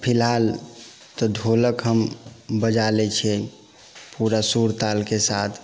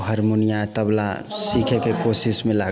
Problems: background sounds at intervals